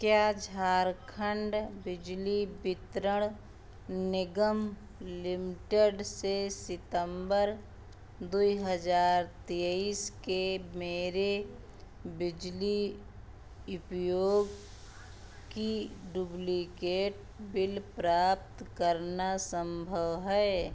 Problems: background sounds at intervals